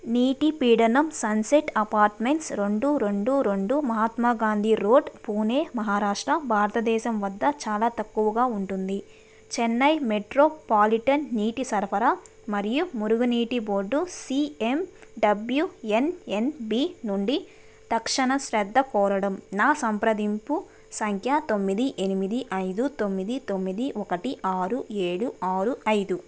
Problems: constant background noise